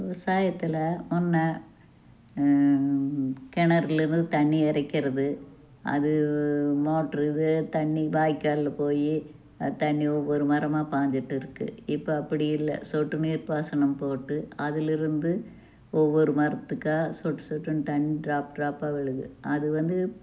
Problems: low volume